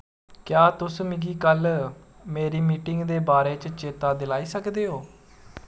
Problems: background sounds at intervals